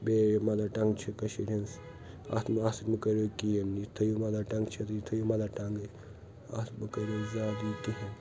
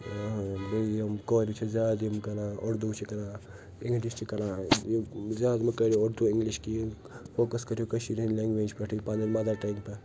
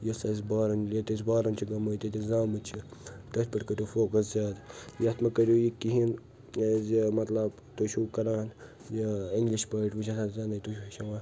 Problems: constant background noise